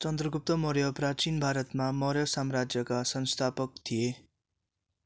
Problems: none marked